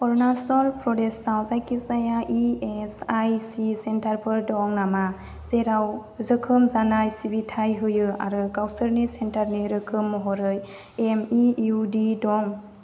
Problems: constant background noise